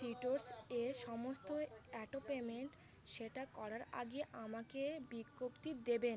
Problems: continuous background conversations